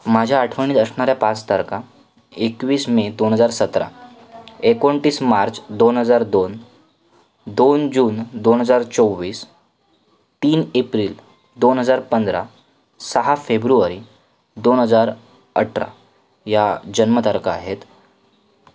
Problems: none marked